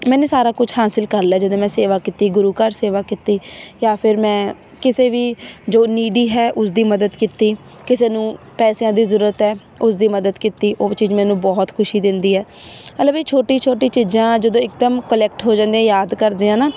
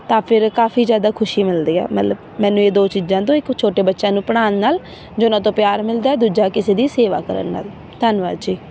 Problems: none marked